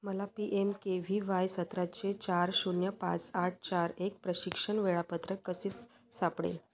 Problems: background sounds at intervals, continuous background conversations